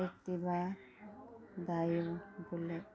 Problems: low volume